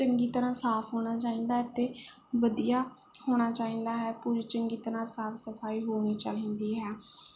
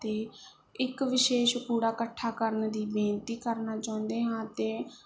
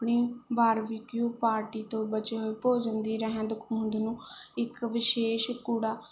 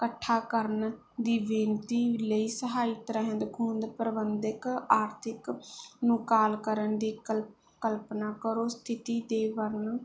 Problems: background sounds at intervals